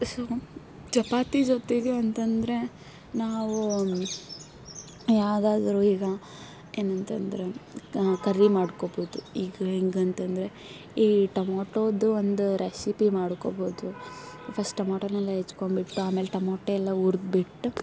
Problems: background sounds at intervals